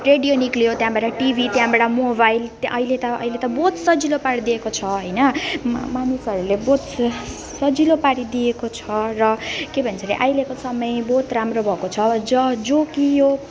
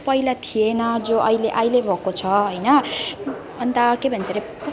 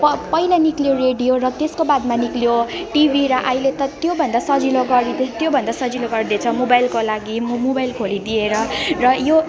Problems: constant background noise, continuous background conversations